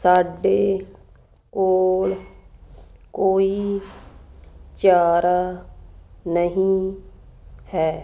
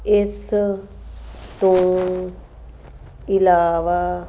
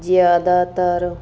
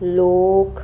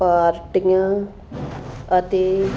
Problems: constant background noise